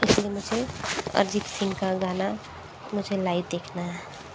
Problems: background sounds at intervals